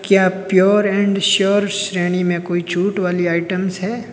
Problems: background sounds at intervals, background conversations at intervals